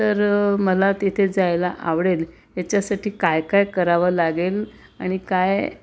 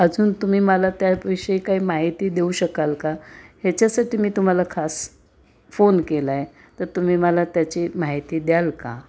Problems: constant background noise